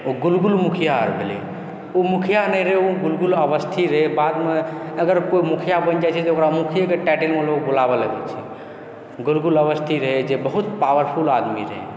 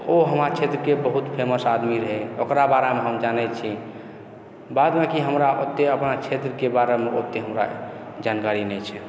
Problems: background sounds at intervals, background conversations at intervals